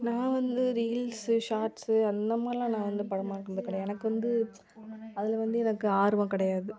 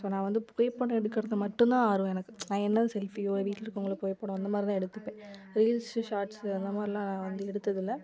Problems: background conversations at intervals